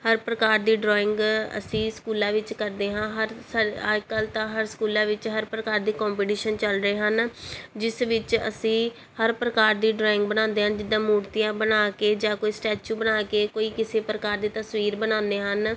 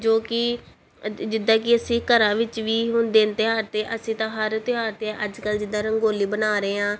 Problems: background sounds at intervals